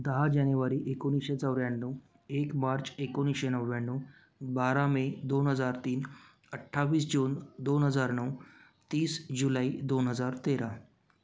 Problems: none marked